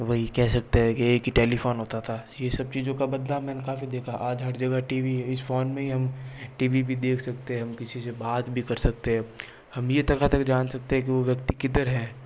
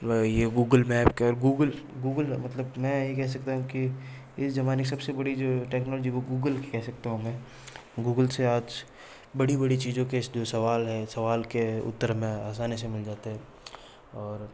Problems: none marked